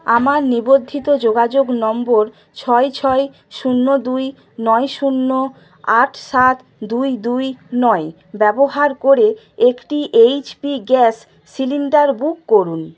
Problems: none marked